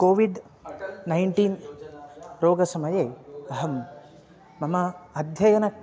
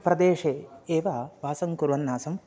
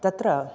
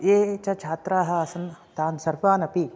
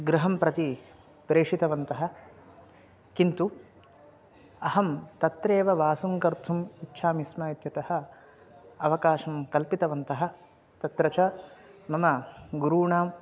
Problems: none marked